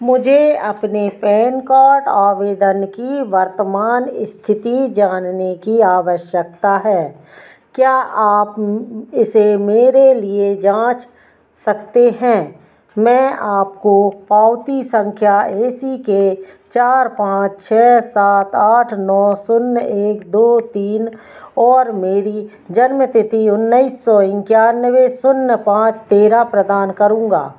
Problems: none marked